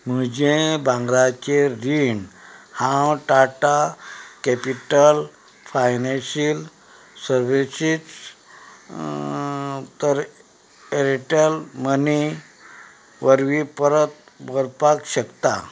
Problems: background sounds at intervals